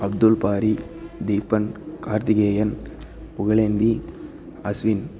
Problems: constant background noise